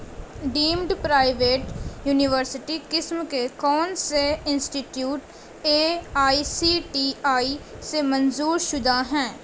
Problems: constant background noise